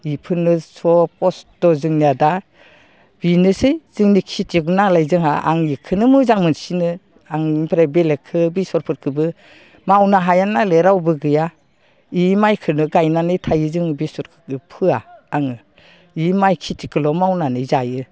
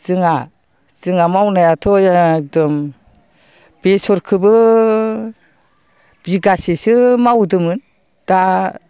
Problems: low volume